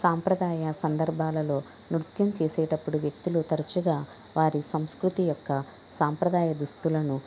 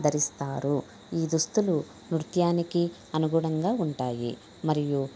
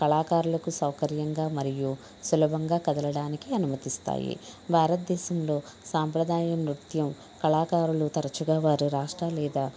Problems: background conversations at intervals